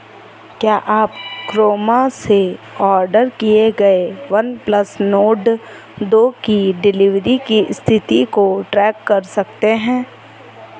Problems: none marked